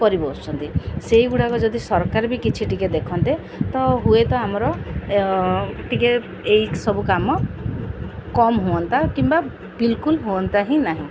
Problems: none marked